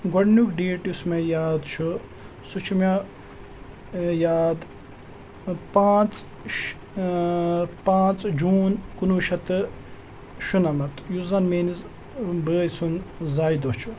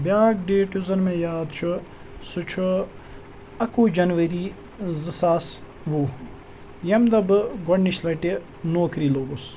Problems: constant background noise